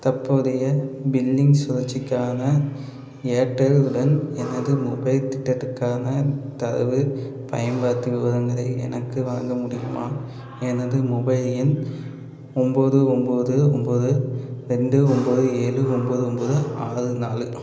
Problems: constant background noise